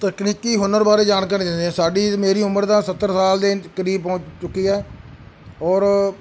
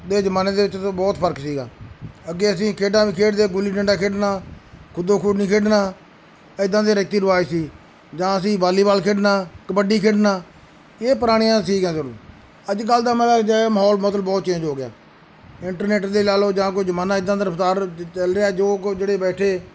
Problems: background sounds at intervals